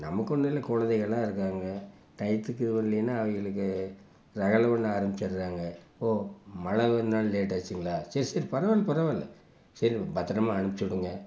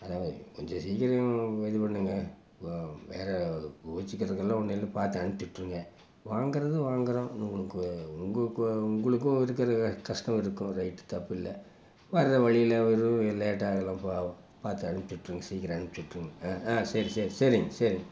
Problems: constant background noise